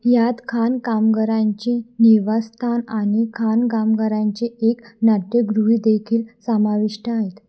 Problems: none marked